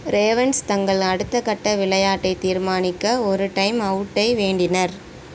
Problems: constant background noise